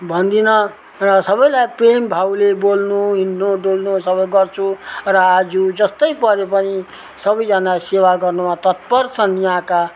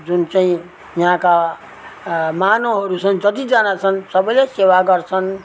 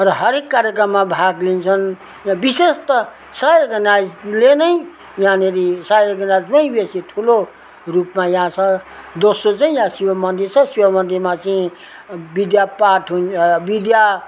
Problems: background sounds at intervals